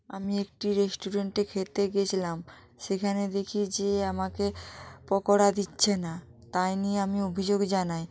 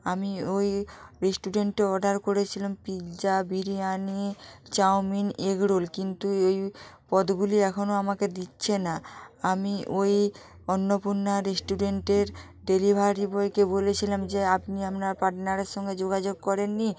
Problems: continuous background conversations